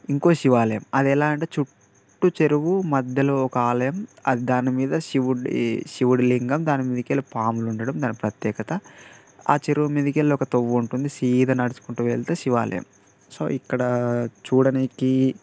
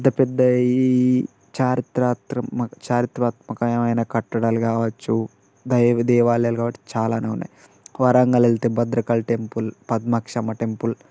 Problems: none marked